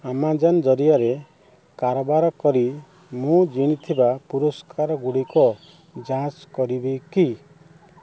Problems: none marked